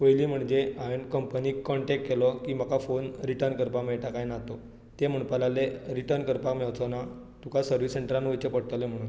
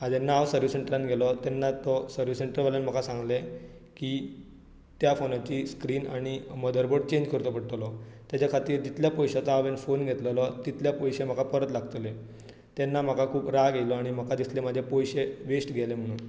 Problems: low volume